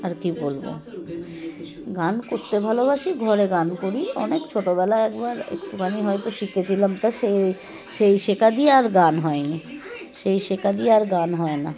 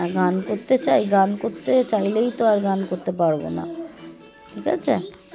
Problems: constant background noise, continuous background conversations